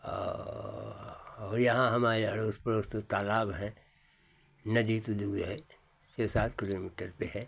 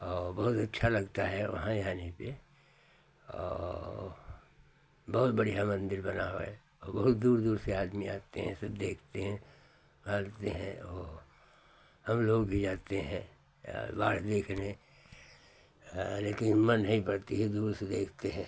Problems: constant background noise